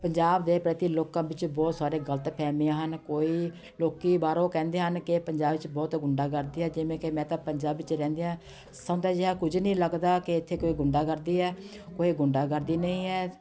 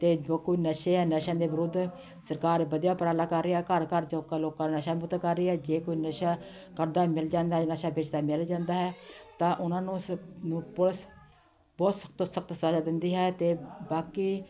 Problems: constant background noise, continuous background conversations